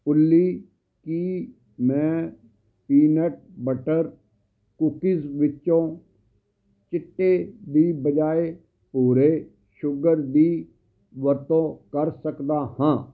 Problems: none marked